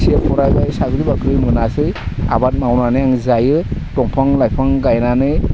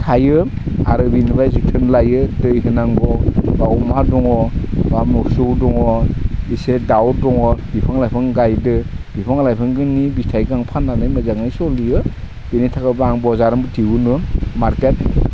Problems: none marked